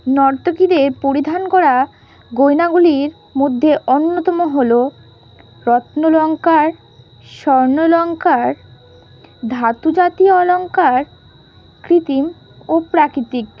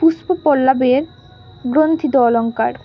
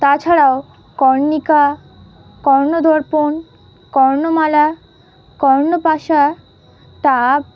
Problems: constant background noise